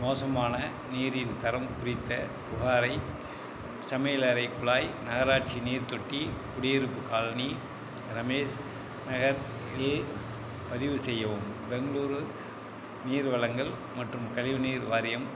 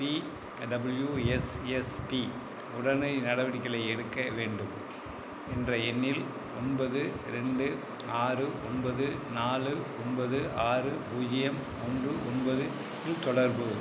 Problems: none marked